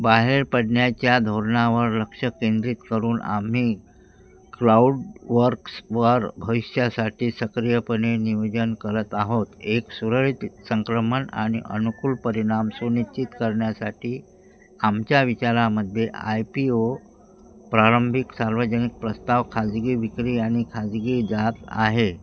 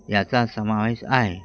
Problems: constant background noise, background conversations at intervals